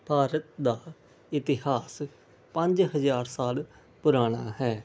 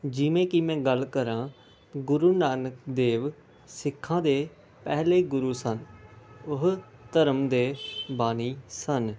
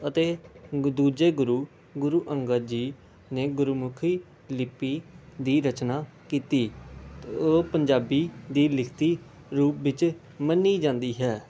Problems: constant background noise